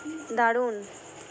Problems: constant background noise, background conversations at intervals